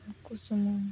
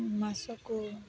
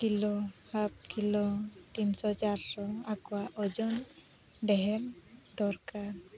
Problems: constant background noise